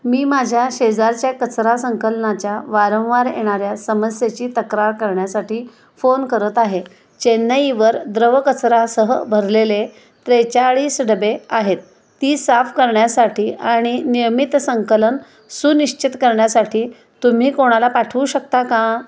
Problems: constant background noise, echo